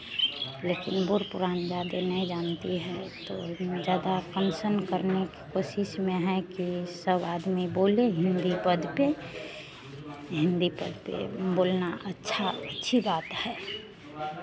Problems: none marked